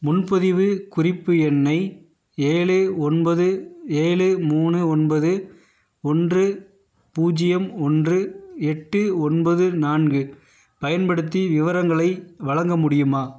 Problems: none marked